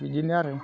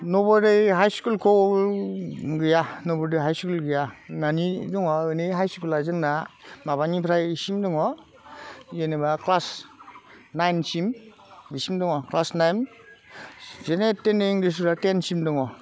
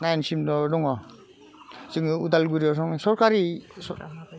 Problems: constant background noise